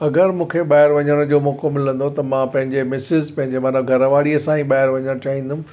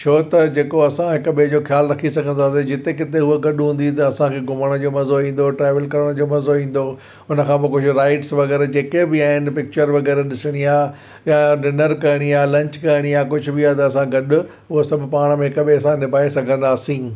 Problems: none marked